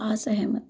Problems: low volume